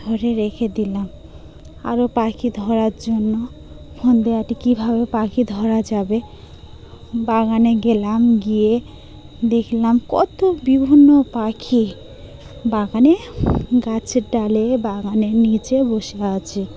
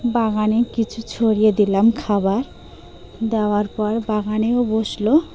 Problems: constant background noise, background conversations at intervals